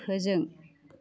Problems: none marked